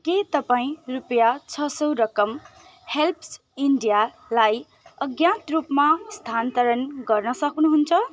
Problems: constant background noise